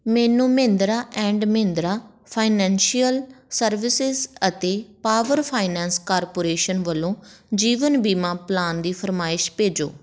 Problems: background sounds at intervals